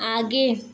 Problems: background sounds at intervals